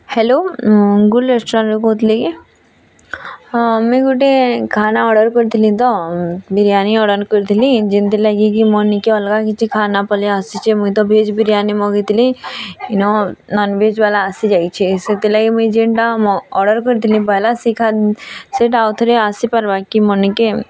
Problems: constant background noise, continuous background conversations